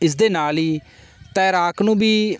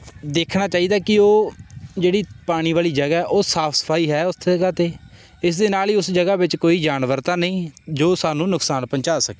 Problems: none marked